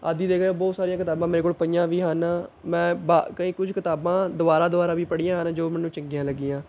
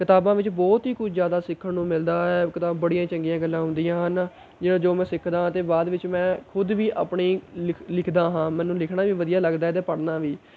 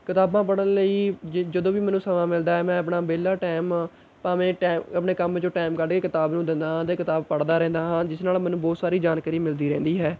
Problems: none marked